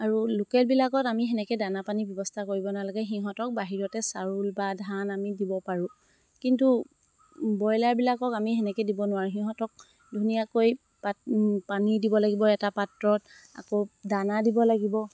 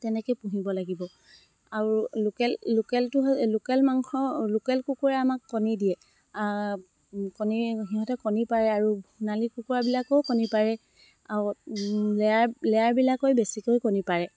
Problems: none marked